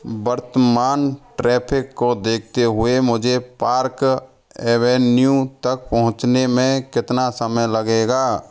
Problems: background conversations at intervals